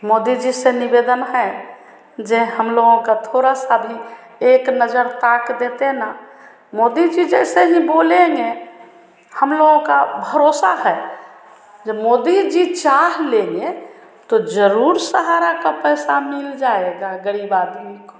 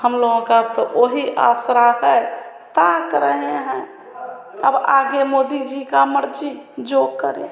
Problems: constant background noise